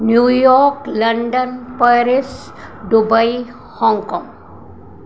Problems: constant background noise